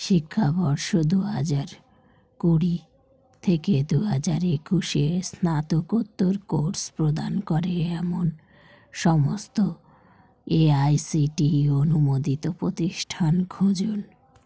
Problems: constant background noise